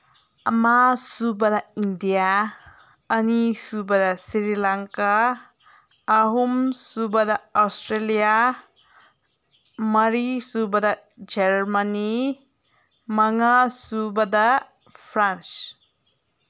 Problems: none marked